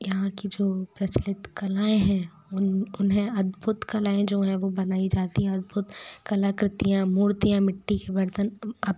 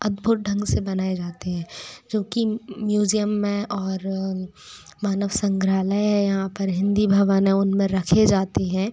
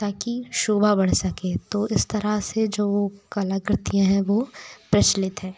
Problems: none marked